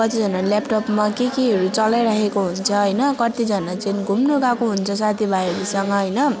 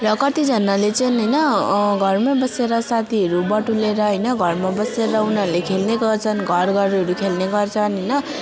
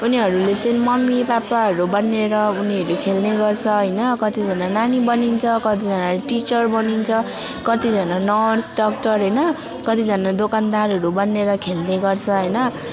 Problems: constant background noise